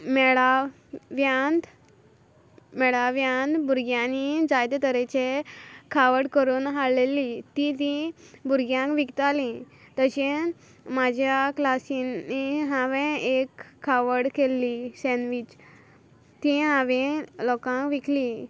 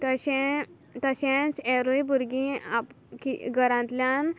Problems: constant background noise